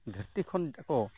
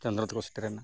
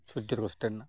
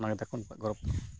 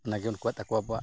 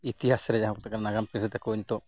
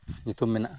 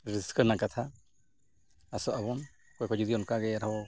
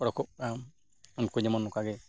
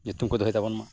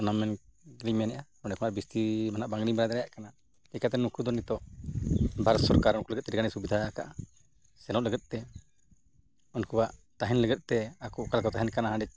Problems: none marked